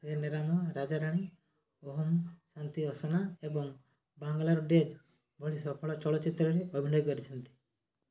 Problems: low volume